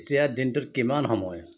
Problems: none marked